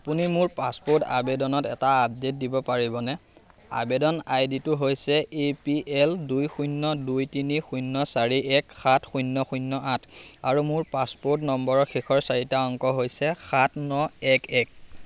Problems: constant background noise